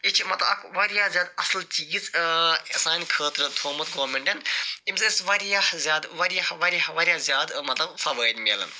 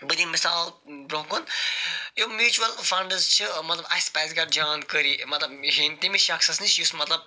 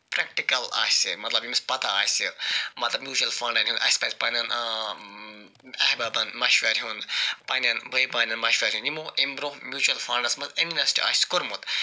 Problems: none marked